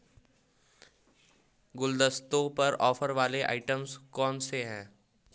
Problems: background sounds at intervals